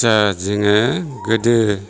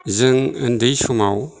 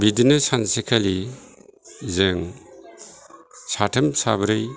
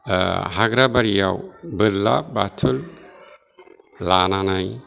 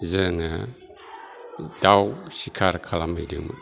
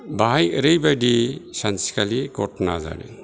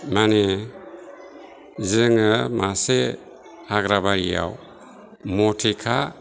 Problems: low volume